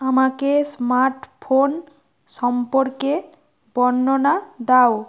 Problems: constant background noise